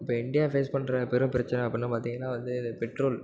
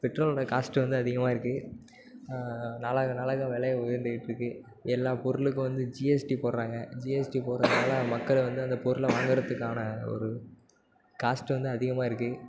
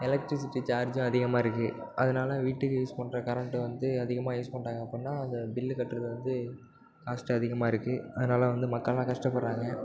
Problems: constant background noise